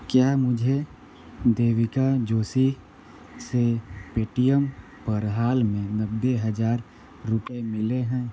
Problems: constant background noise